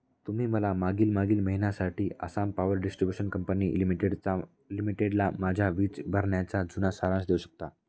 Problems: background conversations at intervals